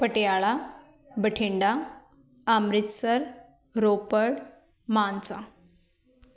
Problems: background conversations at intervals